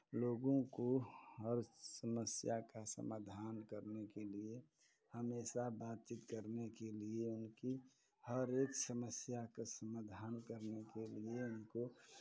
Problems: none marked